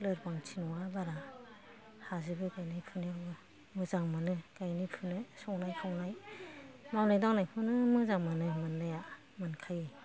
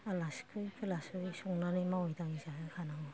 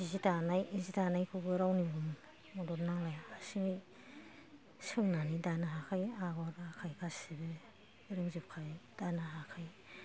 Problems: background conversations at intervals